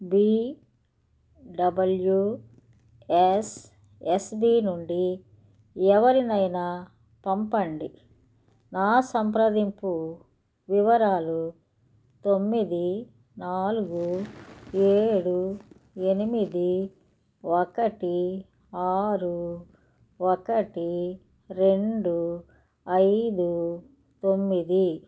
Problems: none marked